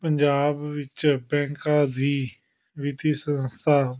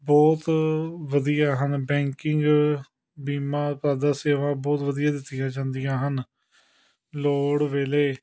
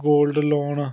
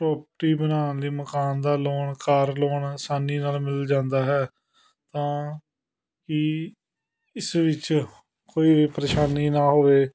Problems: background sounds at intervals